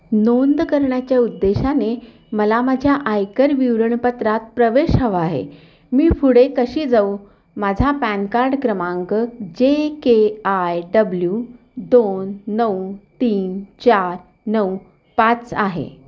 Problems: none marked